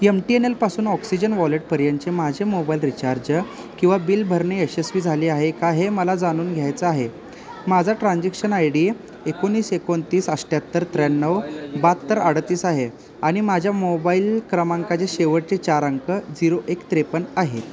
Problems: constant background noise, background conversations at intervals